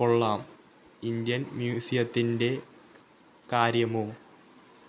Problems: low volume